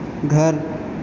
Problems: constant background noise, echo